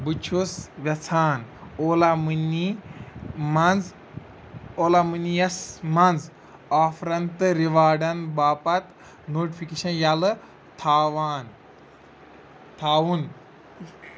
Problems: none marked